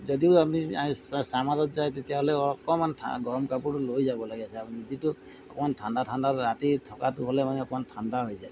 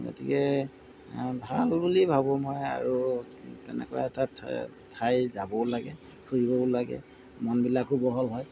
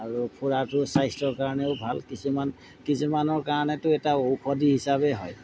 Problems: background sounds at intervals